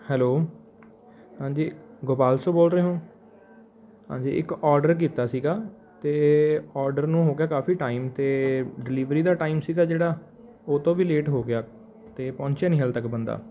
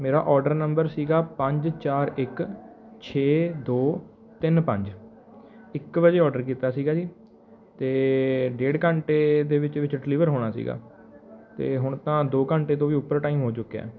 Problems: background sounds at intervals